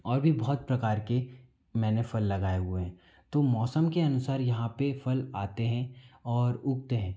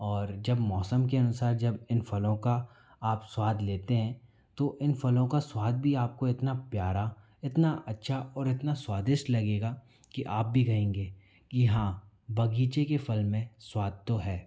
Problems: background sounds at intervals